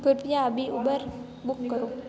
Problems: constant background noise, continuous background conversations